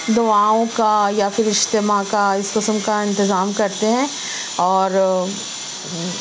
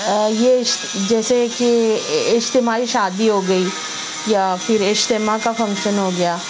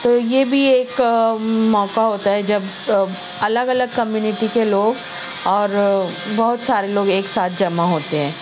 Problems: constant background noise